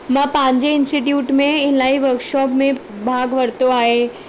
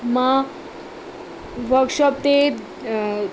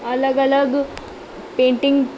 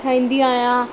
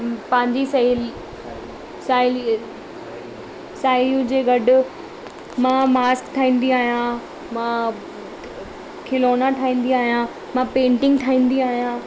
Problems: constant background noise, background conversations at intervals, echo